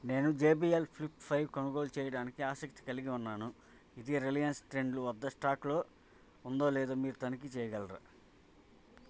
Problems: constant background noise, background conversations at intervals